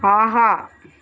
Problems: none marked